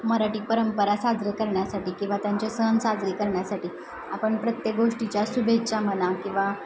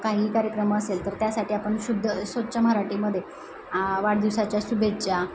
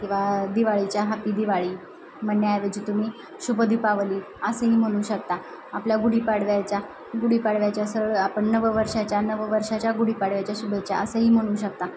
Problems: none marked